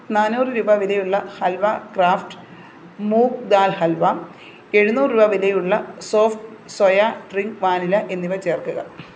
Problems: constant background noise